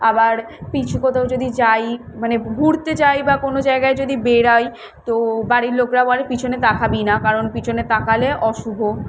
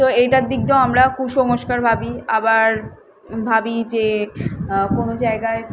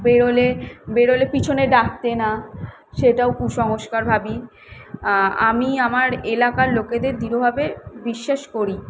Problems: none marked